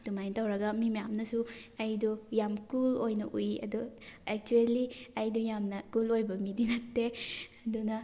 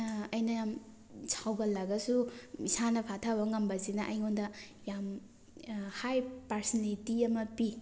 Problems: background sounds at intervals